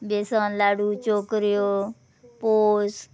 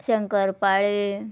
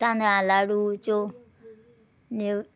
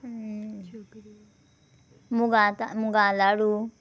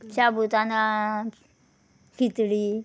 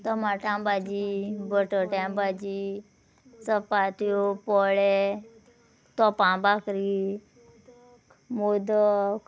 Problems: background sounds at intervals